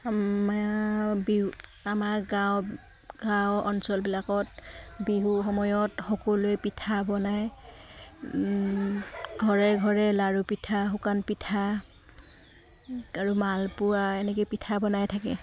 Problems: background sounds at intervals